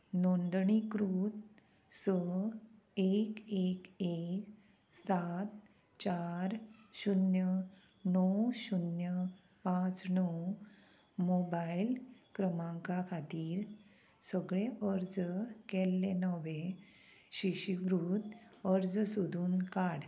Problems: none marked